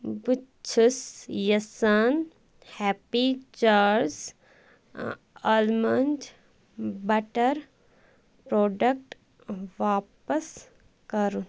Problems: constant background noise